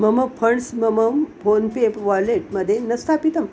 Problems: none marked